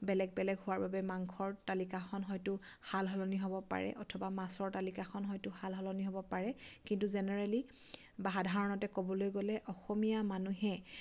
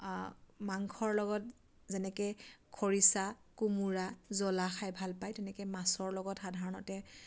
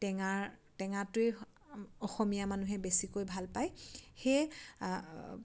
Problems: none marked